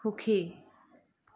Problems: none marked